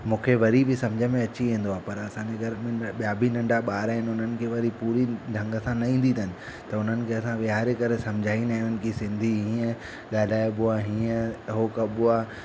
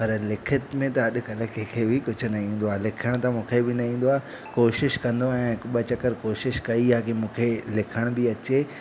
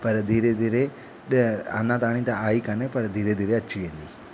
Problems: constant background noise